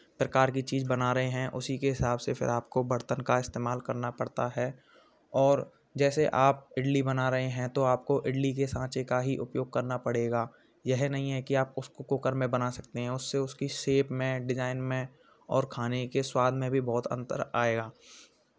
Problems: constant background noise, continuous background conversations